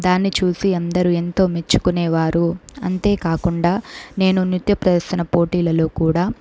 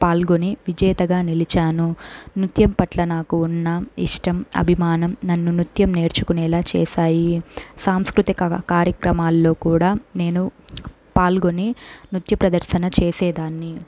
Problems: background sounds at intervals